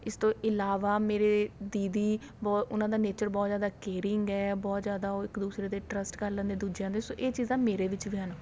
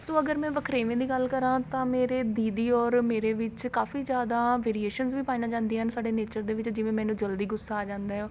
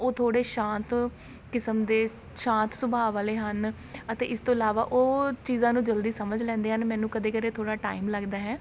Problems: none marked